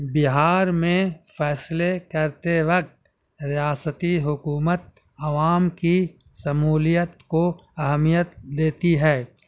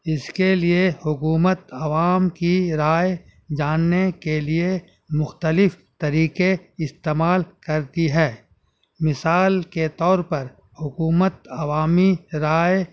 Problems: none marked